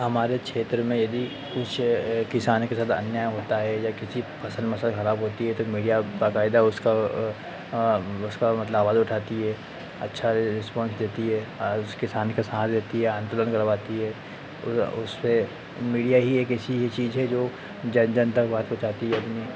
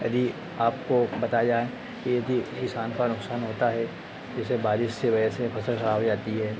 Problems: constant background noise